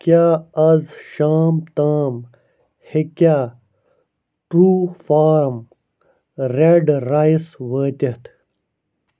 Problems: none marked